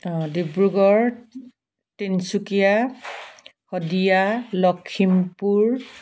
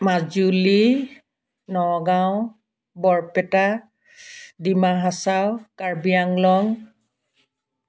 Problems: constant background noise